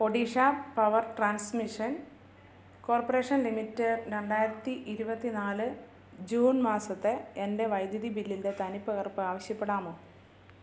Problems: low volume